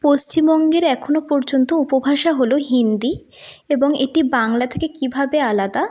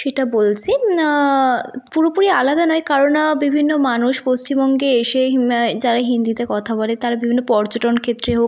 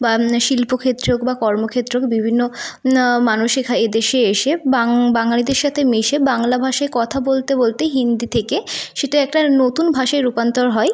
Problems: none marked